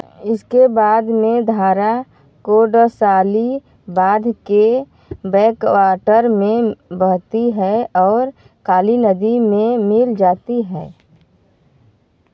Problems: none marked